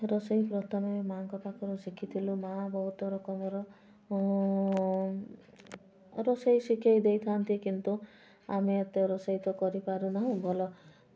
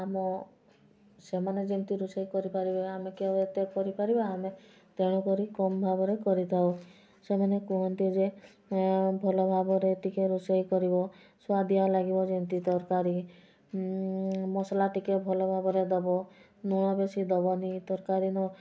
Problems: constant background noise